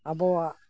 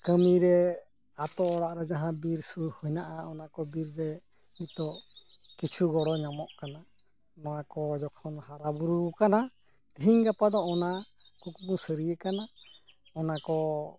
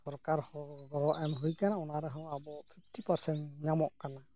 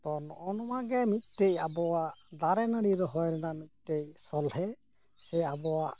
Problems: background sounds at intervals